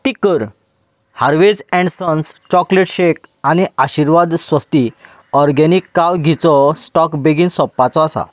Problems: background sounds at intervals